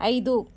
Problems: none marked